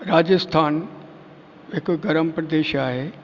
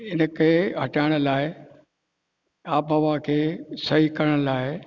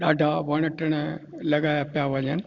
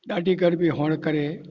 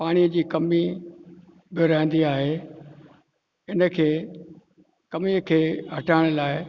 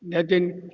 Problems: background sounds at intervals, echo